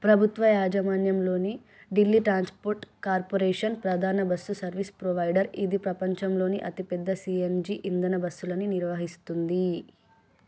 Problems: none marked